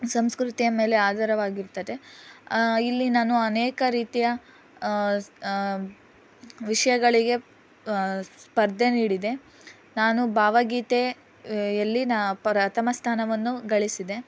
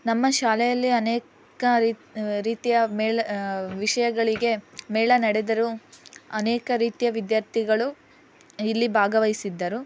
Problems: background conversations at intervals